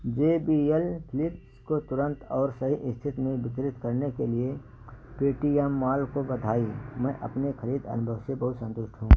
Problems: background sounds at intervals